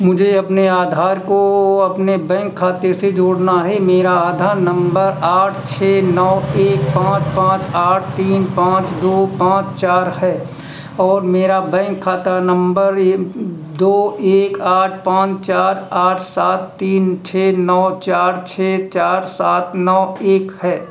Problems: constant background noise